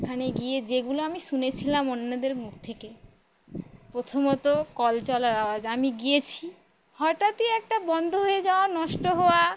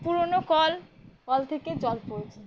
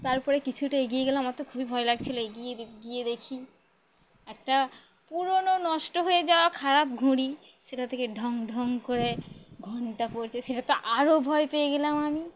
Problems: constant background noise